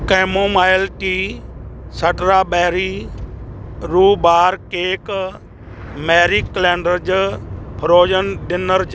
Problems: none marked